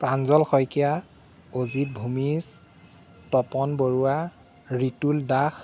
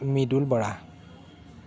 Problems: background sounds at intervals